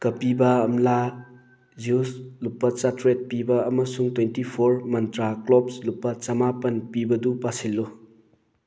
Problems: background sounds at intervals